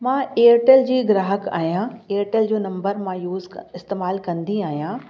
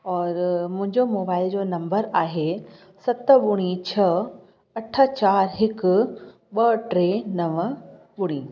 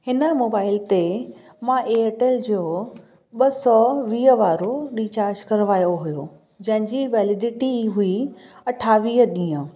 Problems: echo